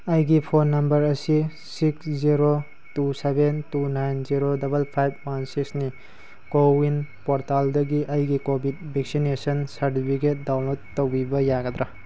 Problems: constant background noise